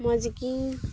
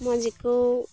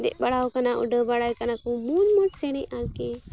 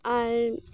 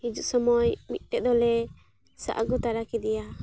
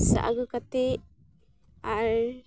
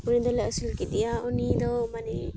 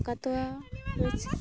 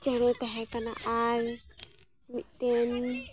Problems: constant background noise, background conversations at intervals